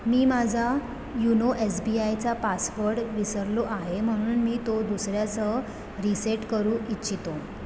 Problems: background sounds at intervals